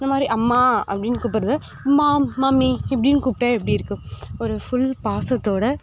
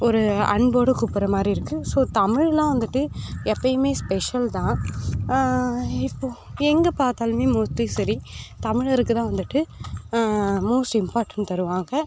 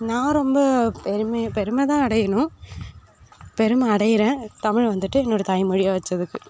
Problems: none marked